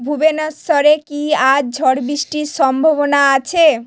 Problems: none marked